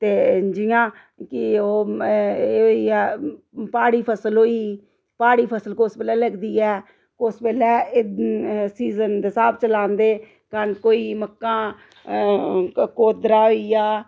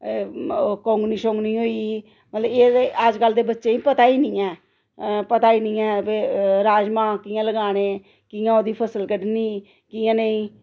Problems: none marked